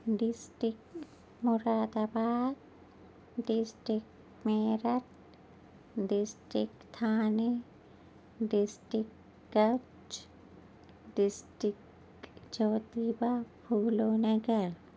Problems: none marked